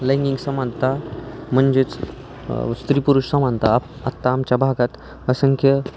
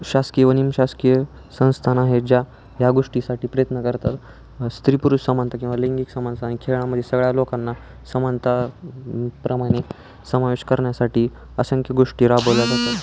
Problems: none marked